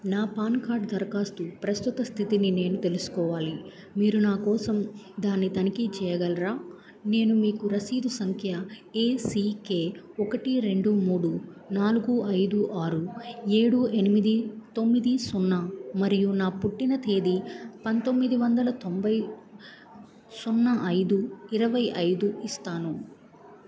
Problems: background conversations at intervals